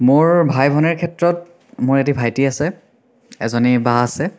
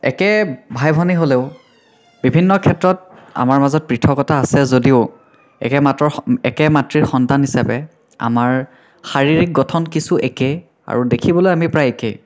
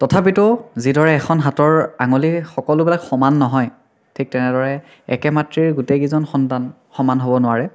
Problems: background sounds at intervals, continuous background conversations, echo